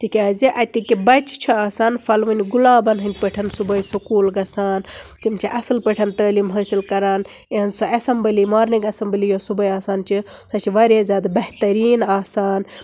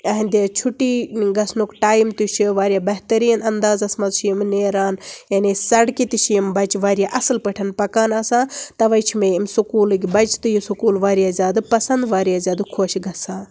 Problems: constant background noise